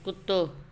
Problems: constant background noise